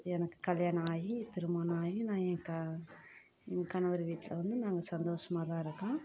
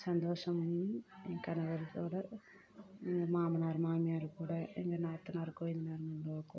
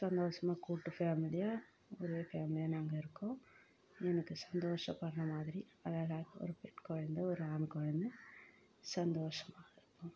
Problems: low volume